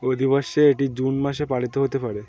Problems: none marked